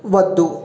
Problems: none marked